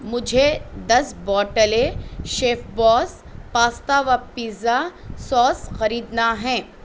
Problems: constant background noise